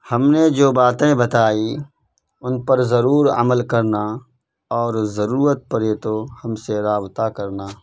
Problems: constant background noise